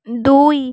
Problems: none marked